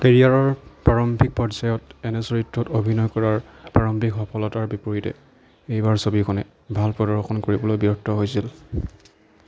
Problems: none marked